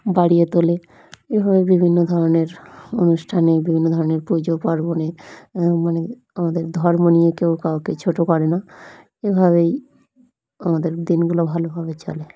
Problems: background sounds at intervals, background conversations at intervals